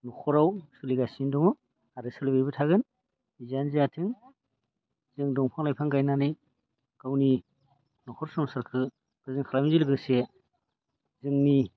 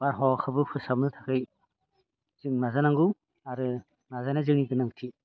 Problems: low volume